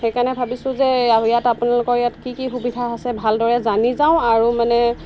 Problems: constant background noise